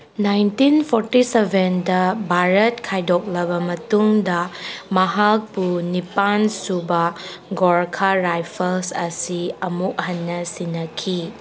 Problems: background sounds at intervals